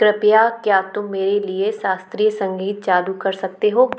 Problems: none marked